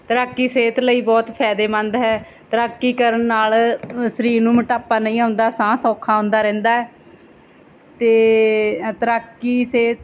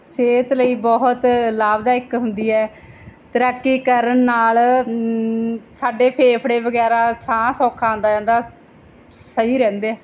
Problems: background sounds at intervals